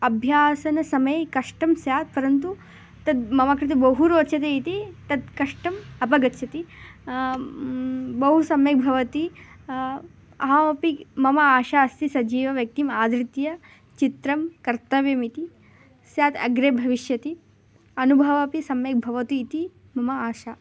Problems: constant background noise